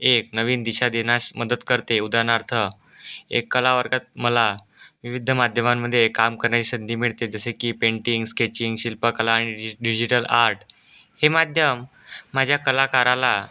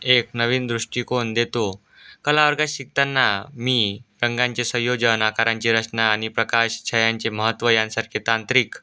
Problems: background sounds at intervals